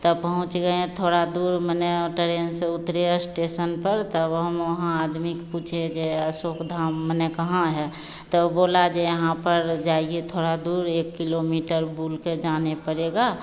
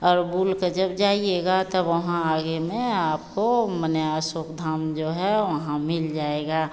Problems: constant background noise, echo